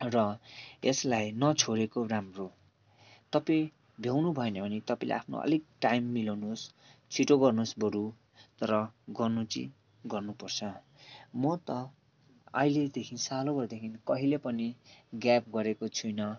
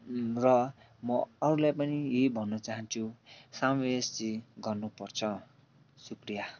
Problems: none marked